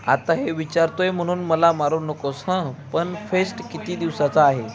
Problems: background sounds at intervals, continuous background conversations